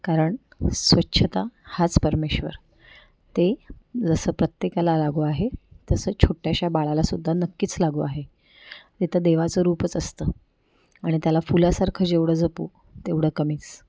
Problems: none marked